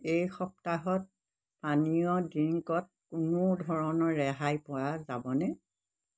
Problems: background sounds at intervals